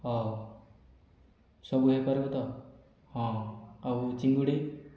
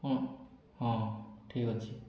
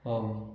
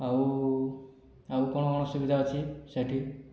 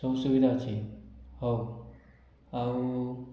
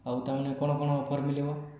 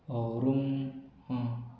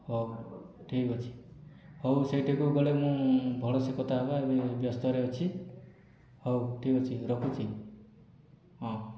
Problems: low volume